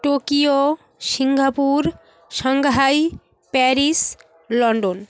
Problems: constant background noise, background conversations at intervals